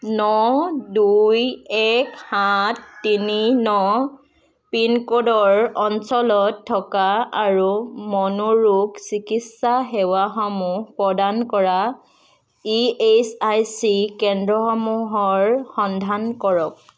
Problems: none marked